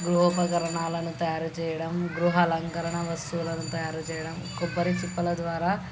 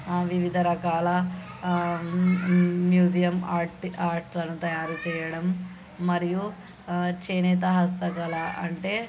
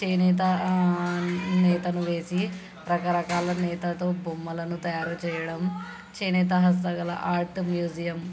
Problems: constant background noise, background conversations at intervals